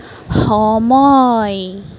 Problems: none marked